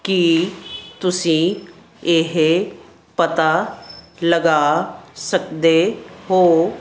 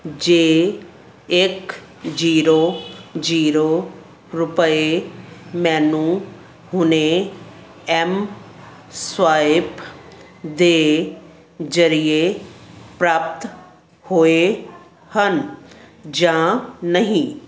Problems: none marked